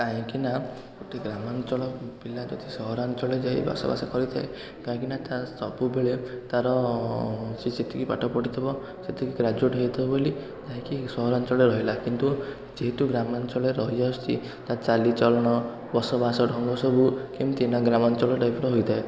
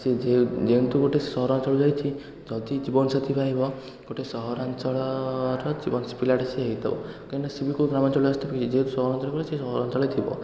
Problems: continuous background conversations